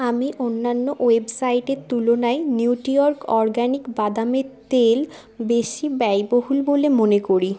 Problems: constant background noise, continuous background conversations